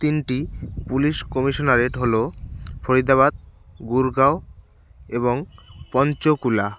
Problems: constant background noise